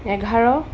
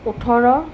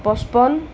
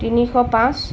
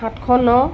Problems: constant background noise